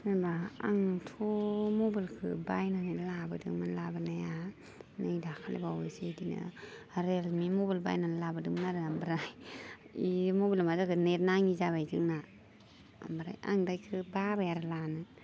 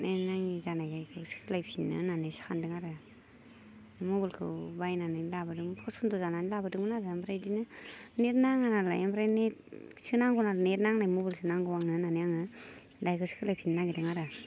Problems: none marked